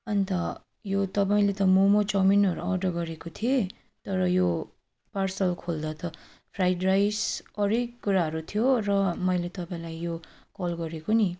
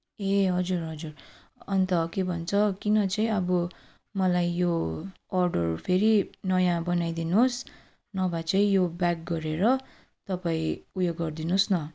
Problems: none marked